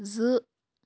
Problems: none marked